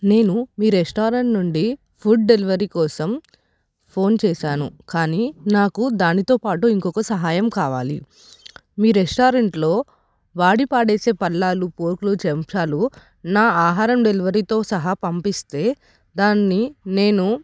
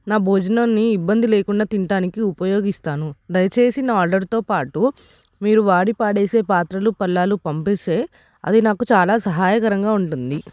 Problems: none marked